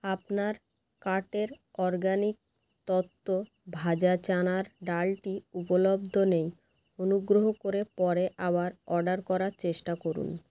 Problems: constant background noise